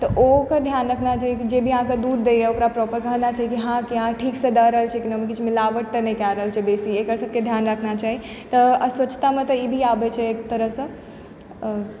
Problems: none marked